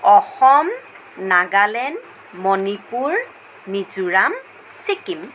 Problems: constant background noise